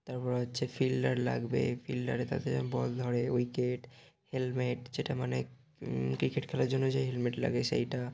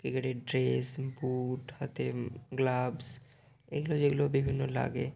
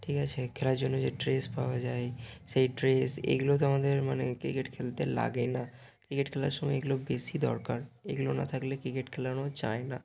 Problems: background sounds at intervals